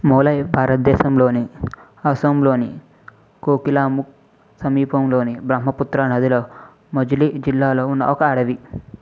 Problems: none marked